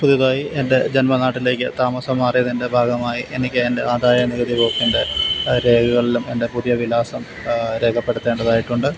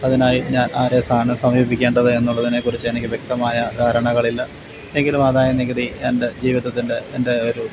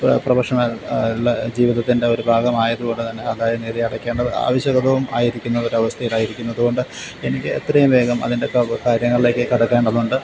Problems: constant background noise, low volume